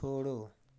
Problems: none marked